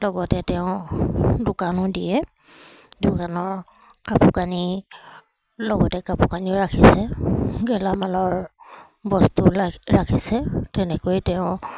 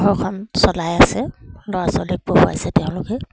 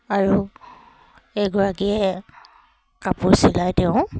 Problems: constant background noise